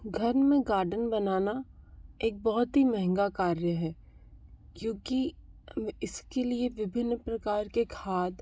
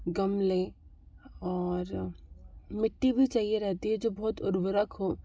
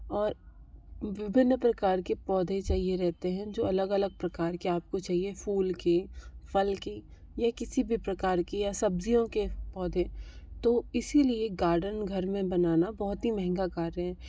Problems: background sounds at intervals